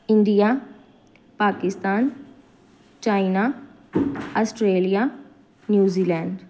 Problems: none marked